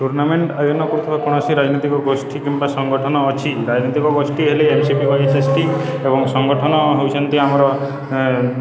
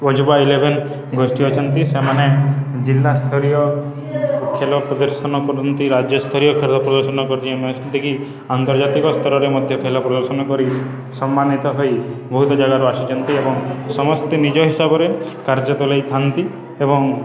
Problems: constant background noise, continuous background conversations